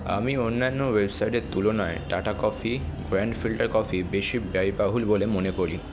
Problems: constant background noise, background conversations at intervals